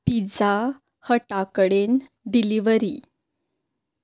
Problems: background sounds at intervals